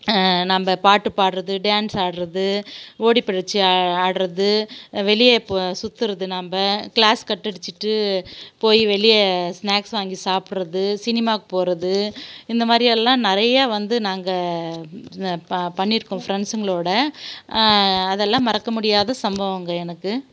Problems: background sounds at intervals